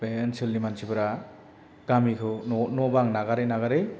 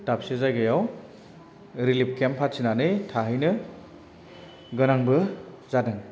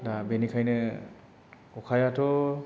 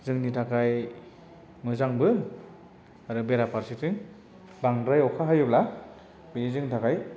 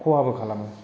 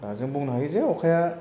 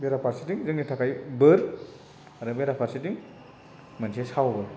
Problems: none marked